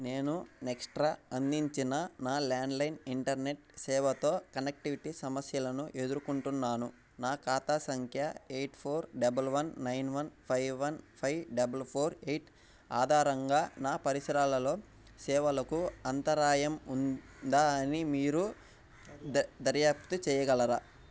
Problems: background sounds at intervals